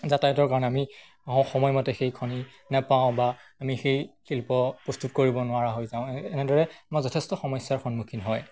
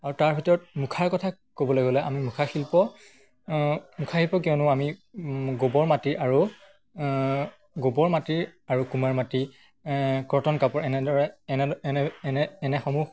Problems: none marked